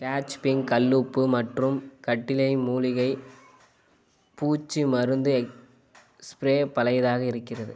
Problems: constant background noise